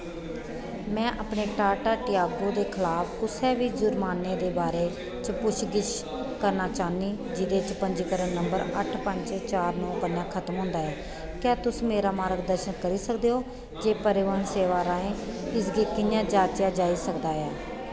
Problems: constant background noise, echo